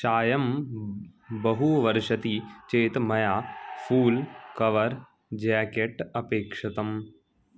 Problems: none marked